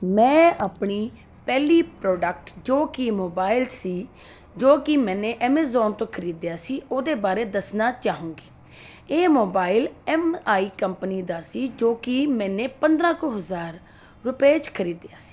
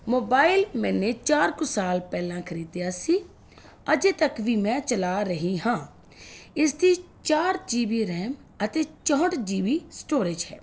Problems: constant background noise